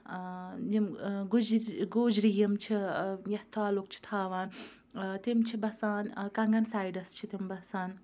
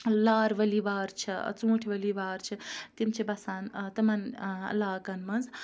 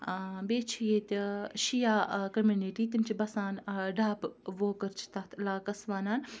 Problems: background conversations at intervals